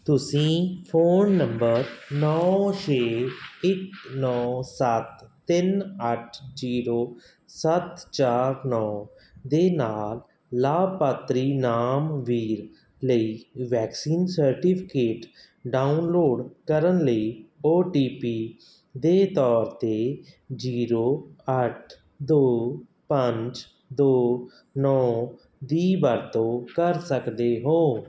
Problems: none marked